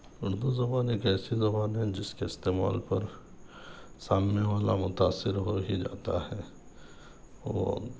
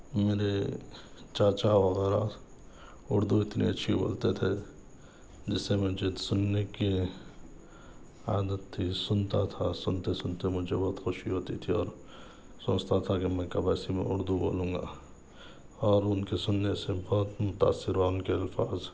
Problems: none marked